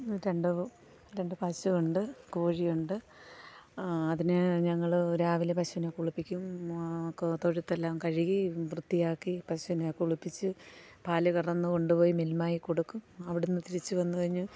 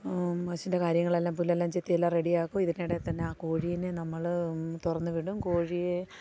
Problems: background sounds at intervals